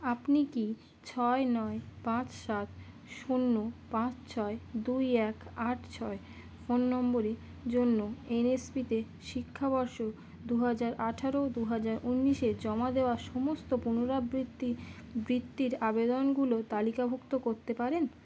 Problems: constant background noise